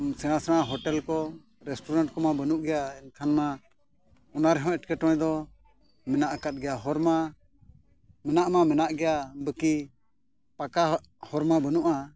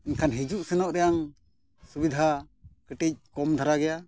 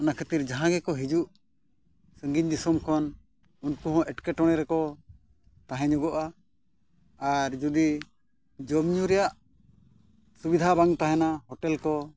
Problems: none marked